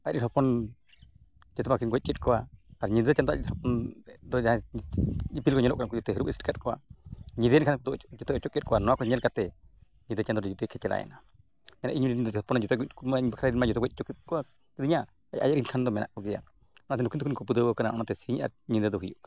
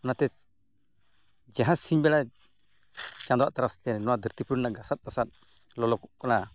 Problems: none marked